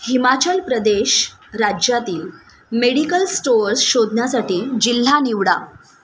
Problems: constant background noise